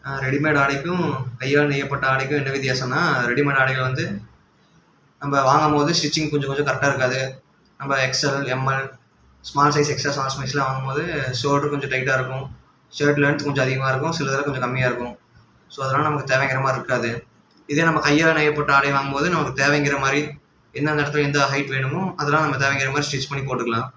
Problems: none marked